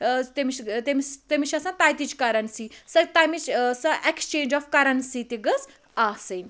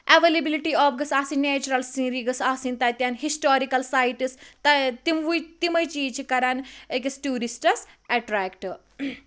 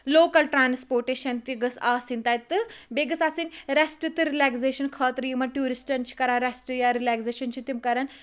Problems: background sounds at intervals